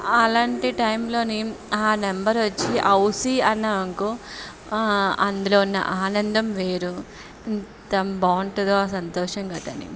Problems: background sounds at intervals, background conversations at intervals